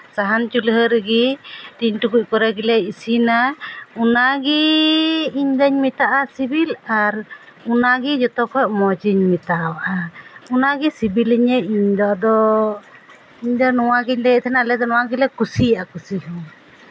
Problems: background sounds at intervals